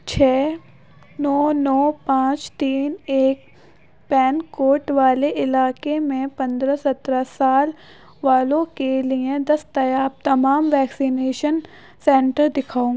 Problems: none marked